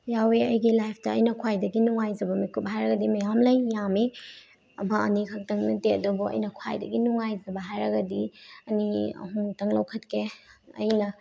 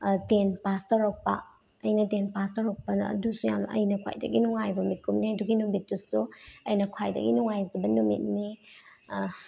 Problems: none marked